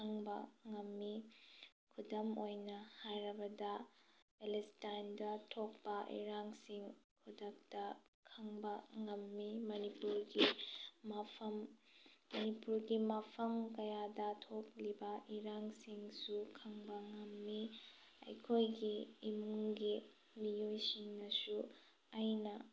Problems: low volume